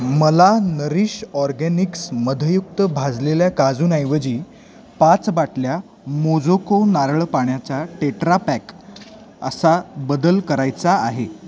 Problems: none marked